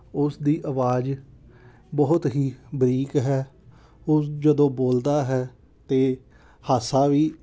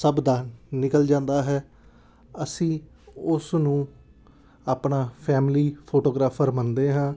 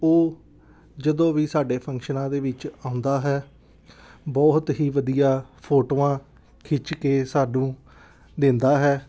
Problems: background sounds at intervals, background conversations at intervals